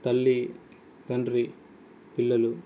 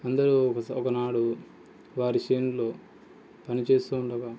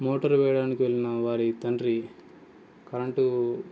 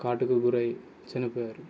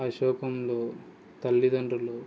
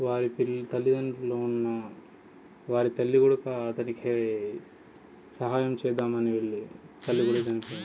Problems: background sounds at intervals, background conversations at intervals